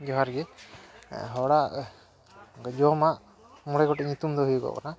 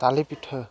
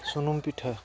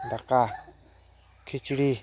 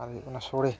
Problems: none marked